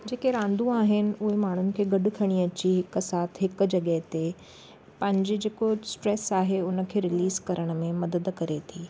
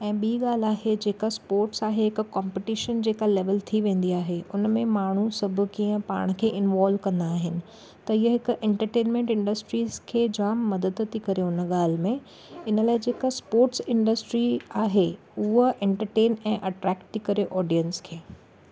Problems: none marked